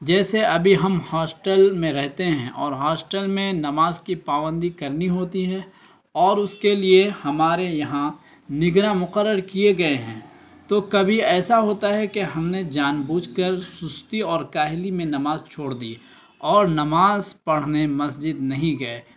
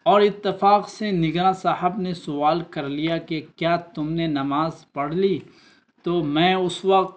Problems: constant background noise